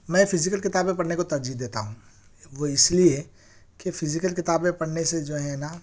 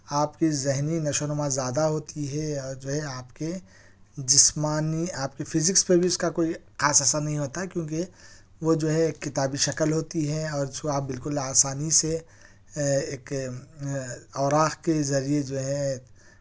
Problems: none marked